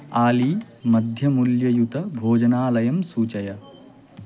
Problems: constant background noise